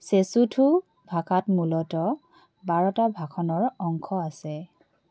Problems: none marked